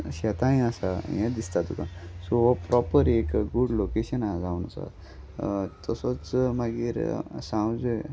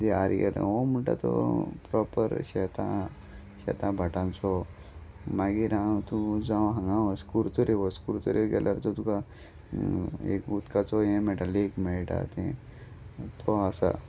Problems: none marked